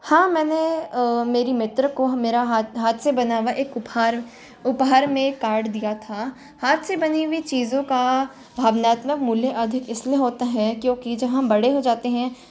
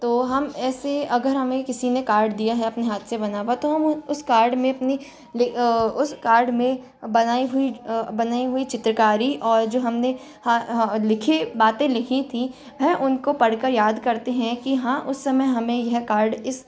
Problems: constant background noise